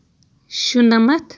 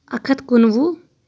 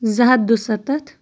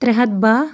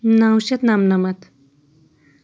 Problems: none marked